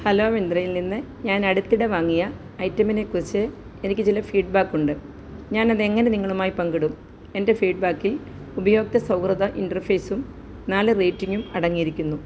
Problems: none marked